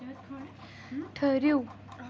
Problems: continuous background conversations